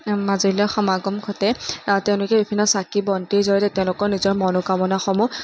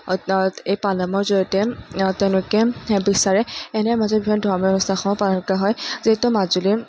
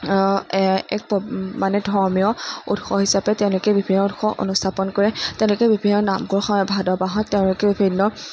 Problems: none marked